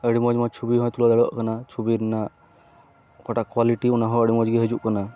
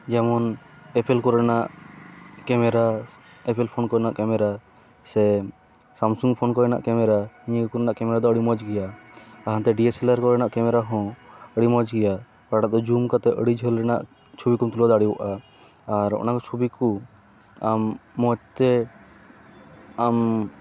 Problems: background sounds at intervals